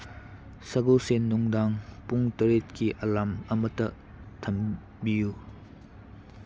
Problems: background sounds at intervals